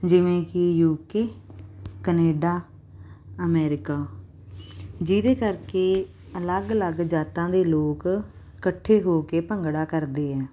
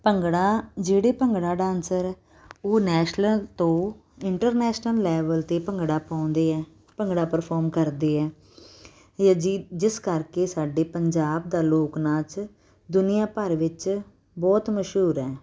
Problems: none marked